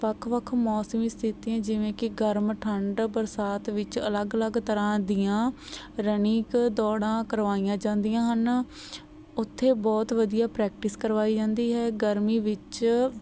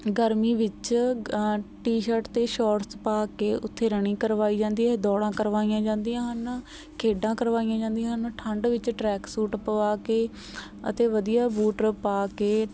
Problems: none marked